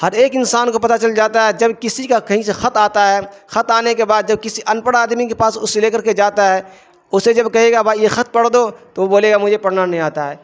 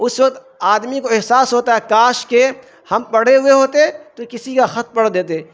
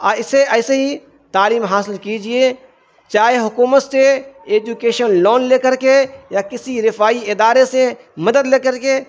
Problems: constant background noise